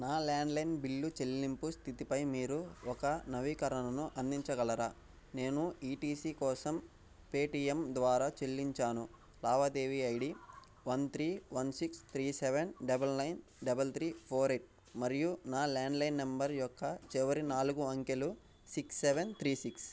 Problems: background sounds at intervals